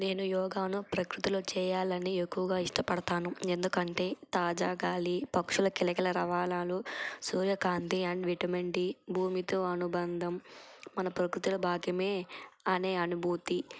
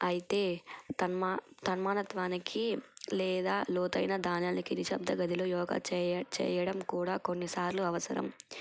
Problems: constant background noise